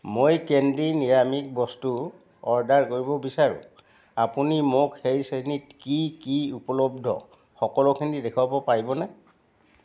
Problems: background sounds at intervals